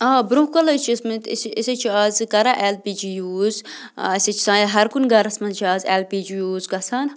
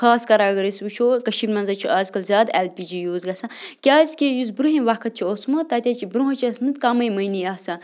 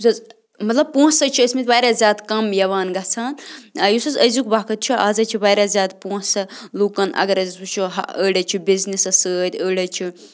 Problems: constant background noise